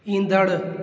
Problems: constant background noise, echo